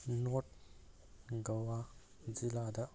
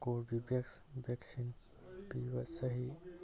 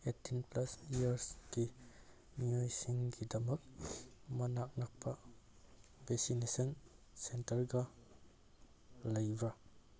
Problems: background sounds at intervals